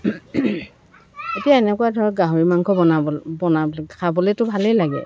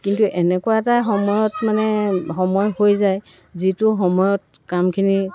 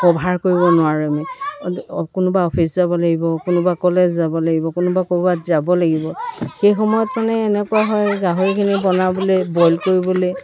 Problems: constant background noise